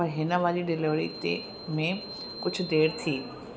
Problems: constant background noise, echo